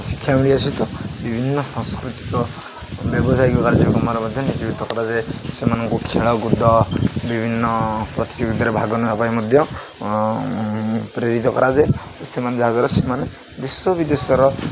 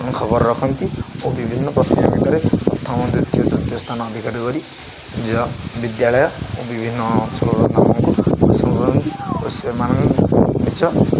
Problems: constant background noise, continuous background conversations